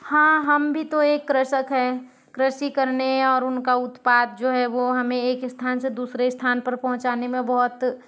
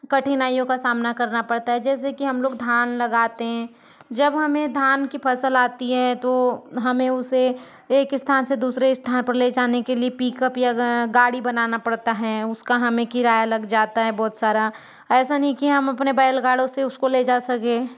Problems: background sounds at intervals, background conversations at intervals